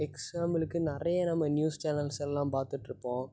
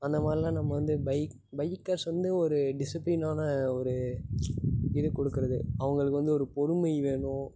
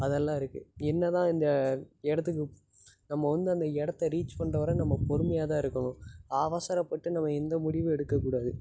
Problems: background sounds at intervals